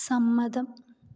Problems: low volume